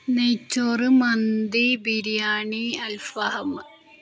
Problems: none marked